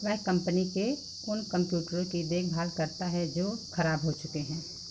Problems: none marked